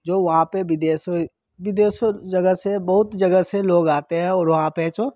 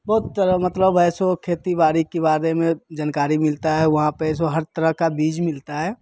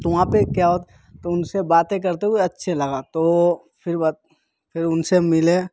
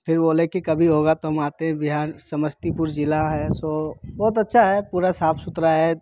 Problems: none marked